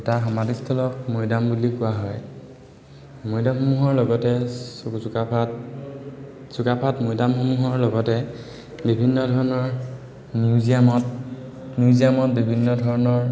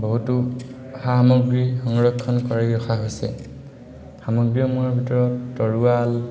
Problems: none marked